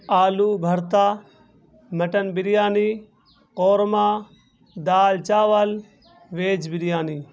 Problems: constant background noise